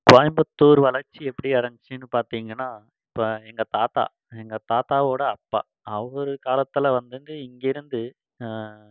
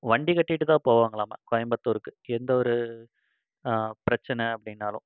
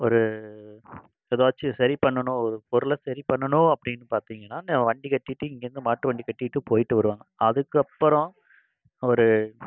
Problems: constant background noise